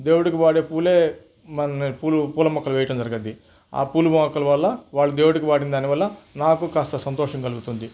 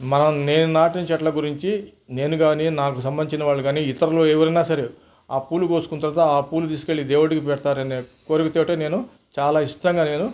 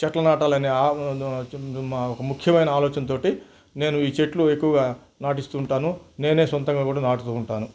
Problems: none marked